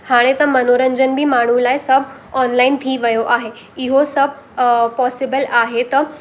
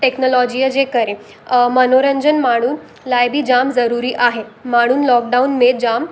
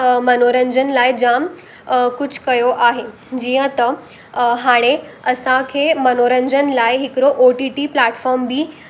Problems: constant background noise